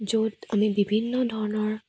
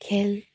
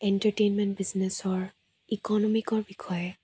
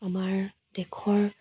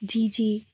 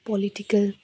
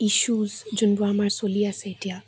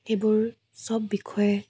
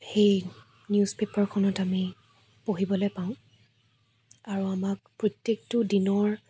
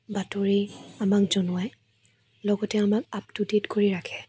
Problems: low volume